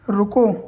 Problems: constant background noise